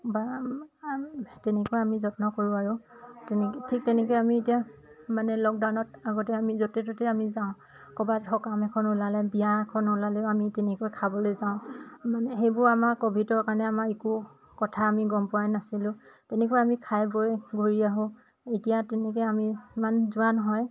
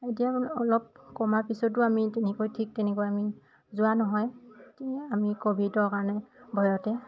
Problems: constant background noise, background conversations at intervals